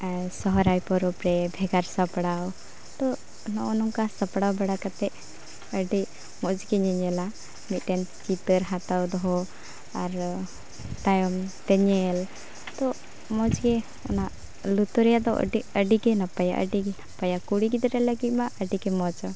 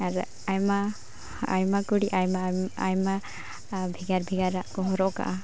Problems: none marked